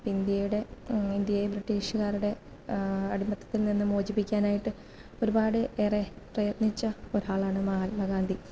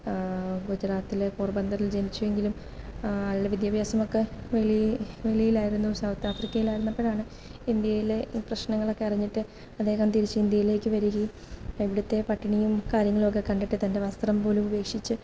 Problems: background sounds at intervals